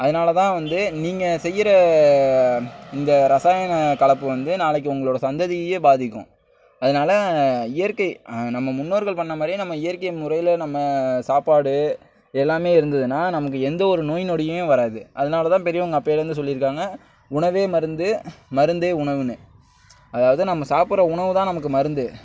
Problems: none marked